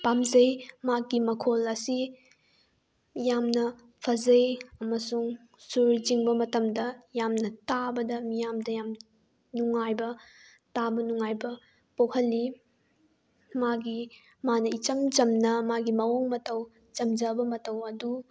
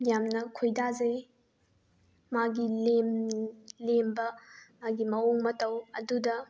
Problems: background sounds at intervals